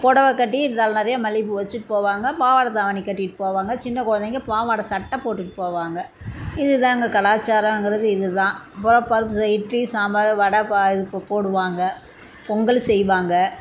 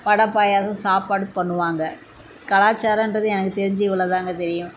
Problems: constant background noise